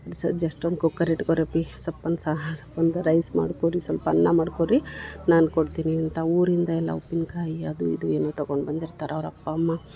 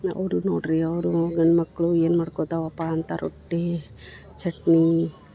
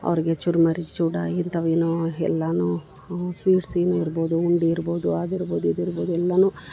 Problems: background sounds at intervals